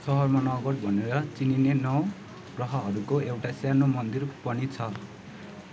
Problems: low volume